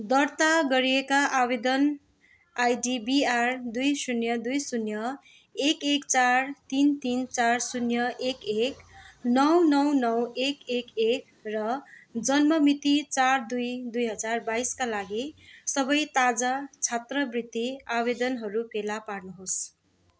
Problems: background conversations at intervals